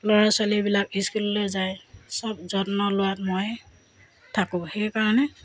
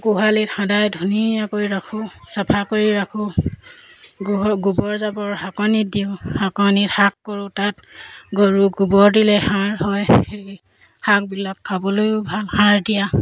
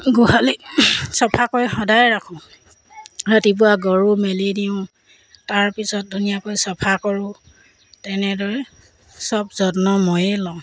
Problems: background sounds at intervals